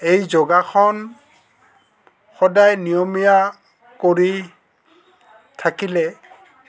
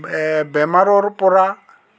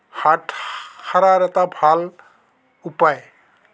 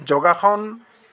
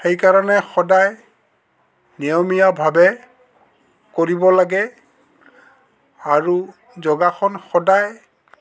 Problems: constant background noise, background conversations at intervals